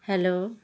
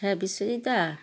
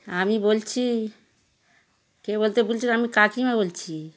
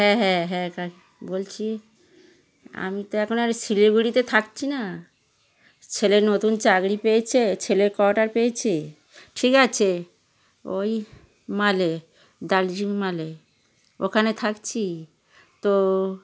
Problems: background conversations at intervals